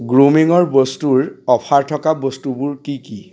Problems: constant background noise, background conversations at intervals